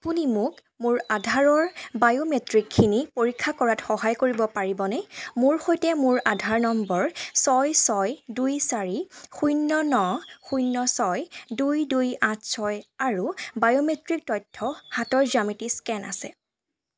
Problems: background sounds at intervals